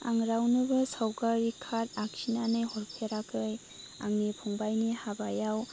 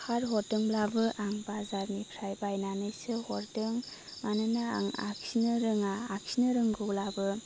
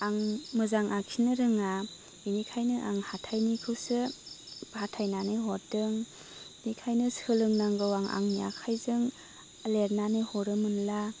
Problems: constant background noise